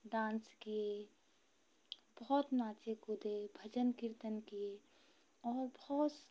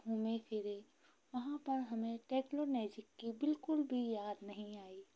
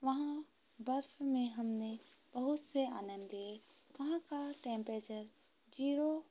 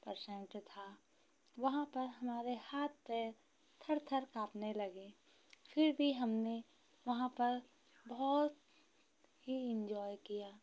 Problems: none marked